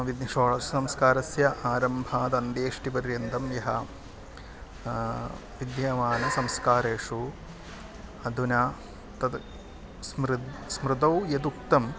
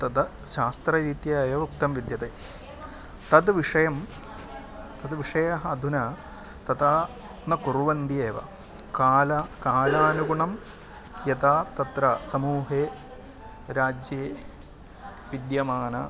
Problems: constant background noise, continuous background conversations